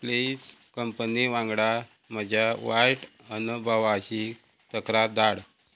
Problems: none marked